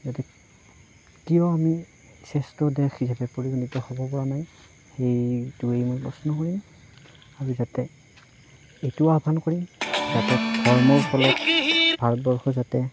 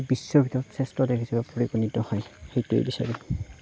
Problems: background sounds at intervals, low volume